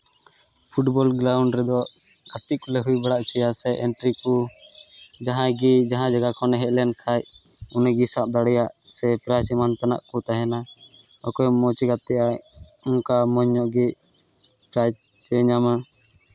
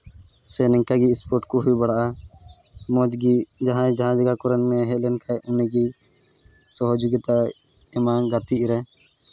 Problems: background sounds at intervals